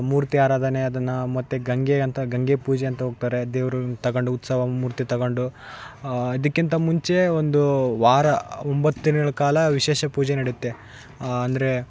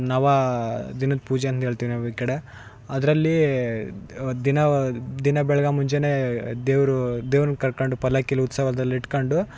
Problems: background sounds at intervals, background conversations at intervals